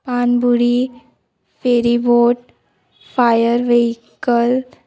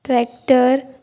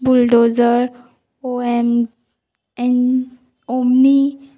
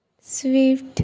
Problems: background sounds at intervals